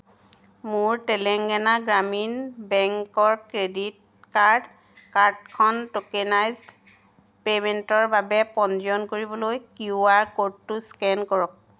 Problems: none marked